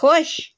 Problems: constant background noise